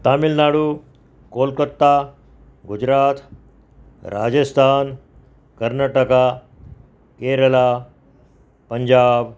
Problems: none marked